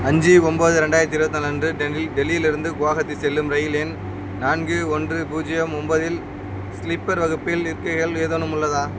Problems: none marked